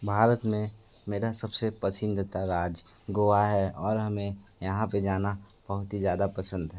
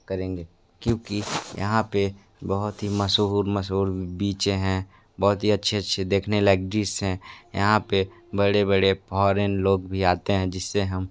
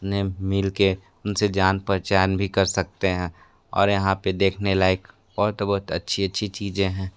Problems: none marked